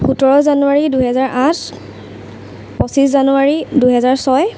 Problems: constant background noise